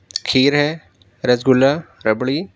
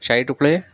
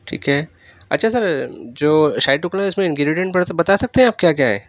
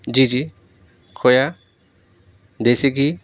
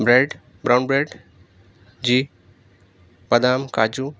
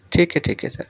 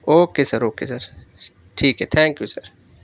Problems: none marked